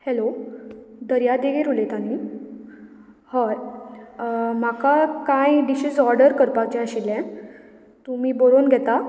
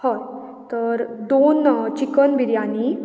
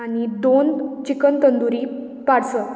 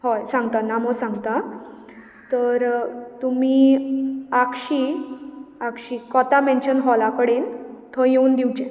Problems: background sounds at intervals